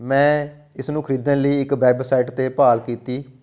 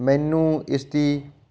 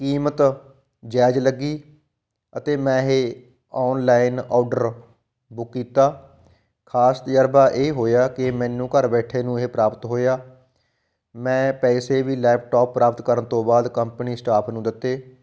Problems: background sounds at intervals